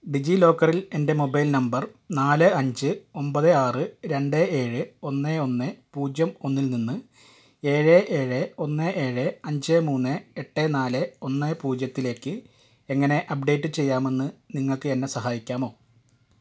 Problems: none marked